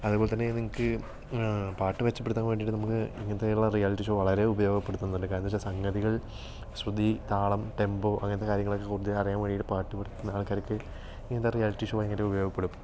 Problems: background sounds at intervals